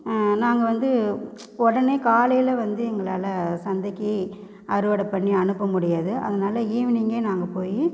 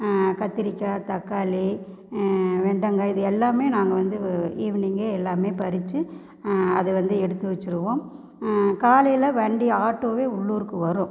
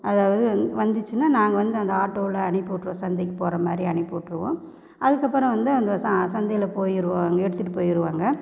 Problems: none marked